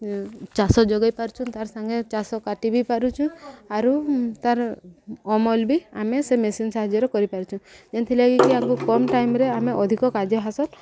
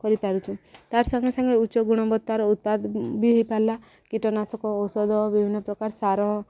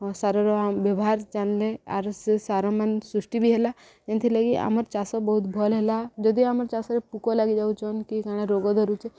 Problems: background conversations at intervals